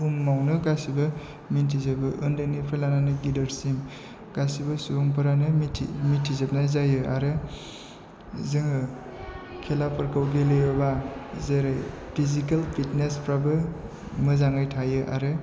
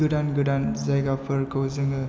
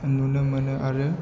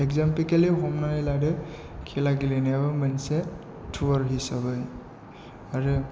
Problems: low volume